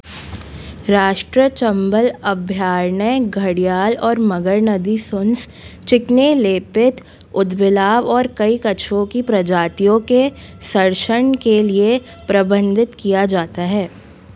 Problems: background sounds at intervals